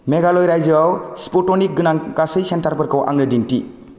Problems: low volume